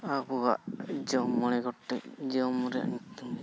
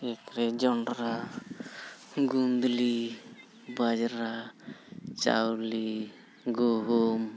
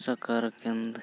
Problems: none marked